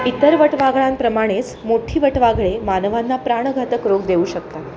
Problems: constant background noise, background conversations at intervals